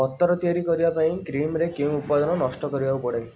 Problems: background sounds at intervals